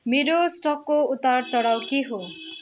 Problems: constant background noise, continuous background conversations